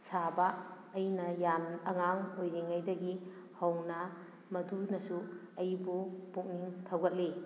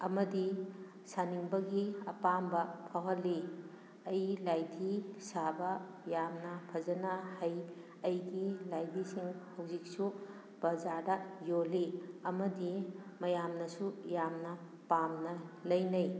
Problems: none marked